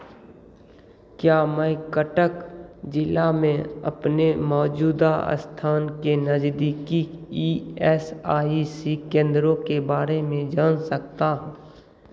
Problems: none marked